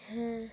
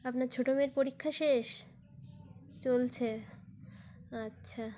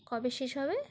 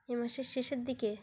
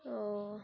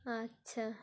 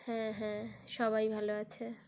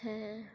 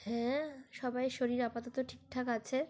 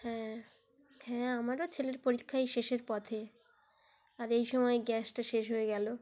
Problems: background sounds at intervals